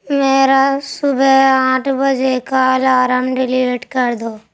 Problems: none marked